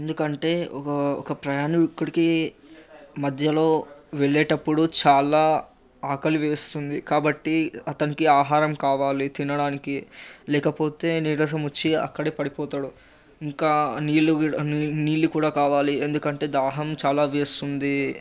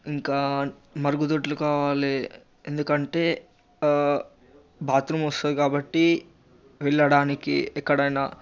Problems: constant background noise